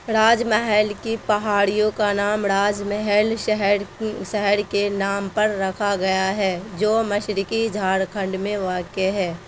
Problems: constant background noise